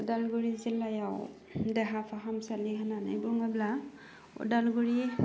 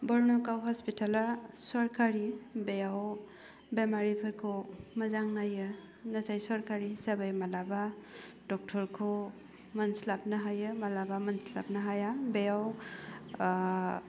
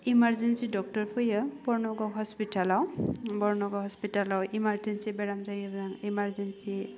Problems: low volume